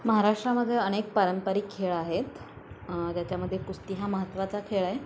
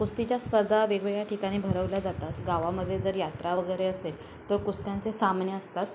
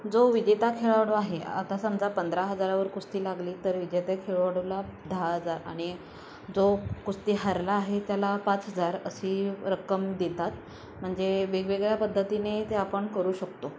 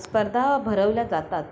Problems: none marked